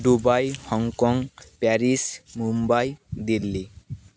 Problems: none marked